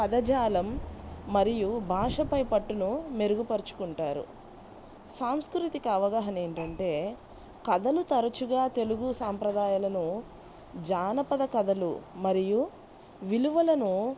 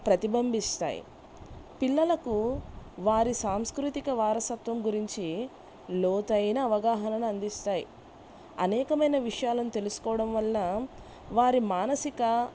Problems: background sounds at intervals